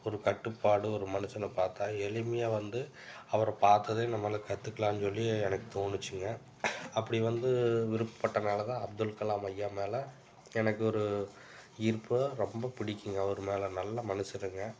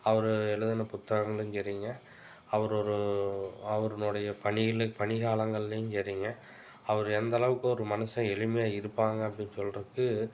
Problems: background sounds at intervals